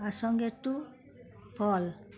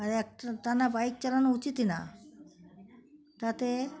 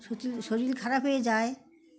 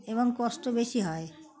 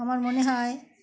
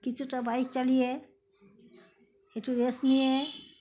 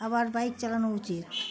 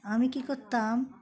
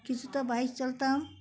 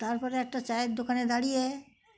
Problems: constant background noise